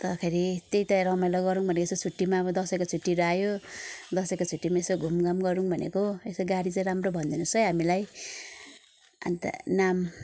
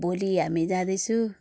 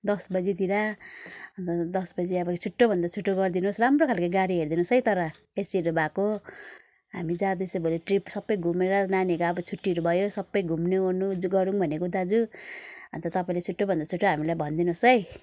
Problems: background sounds at intervals